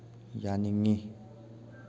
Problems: constant background noise